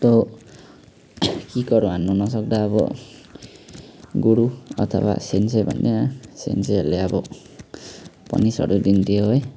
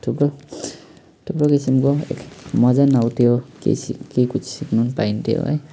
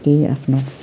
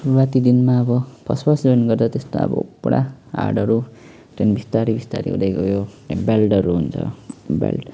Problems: none marked